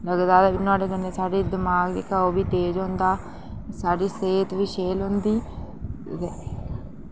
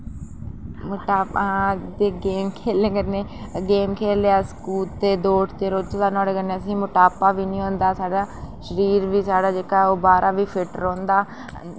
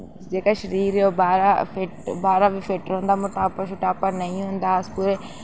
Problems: background conversations at intervals